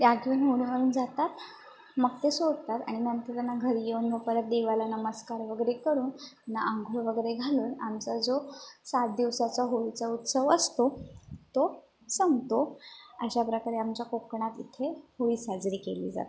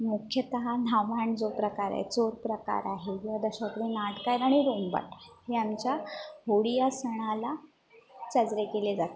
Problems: constant background noise, background conversations at intervals